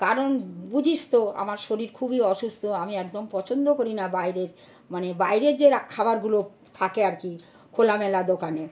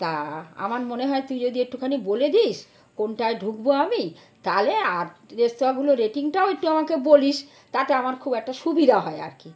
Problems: constant background noise